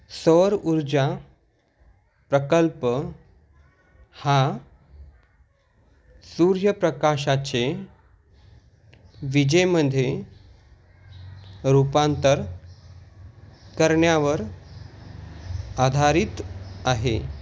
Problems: constant background noise